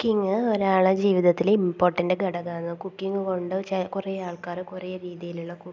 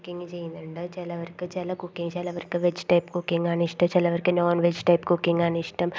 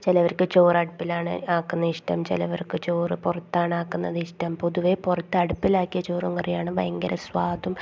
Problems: constant background noise, low volume